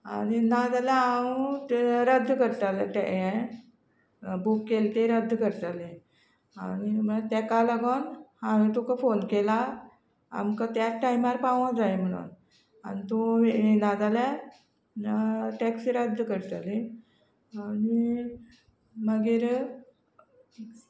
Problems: none marked